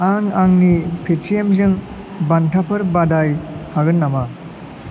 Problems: constant background noise